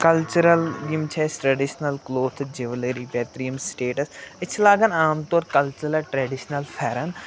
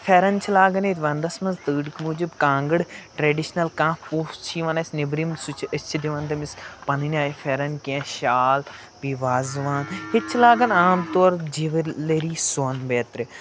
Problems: constant background noise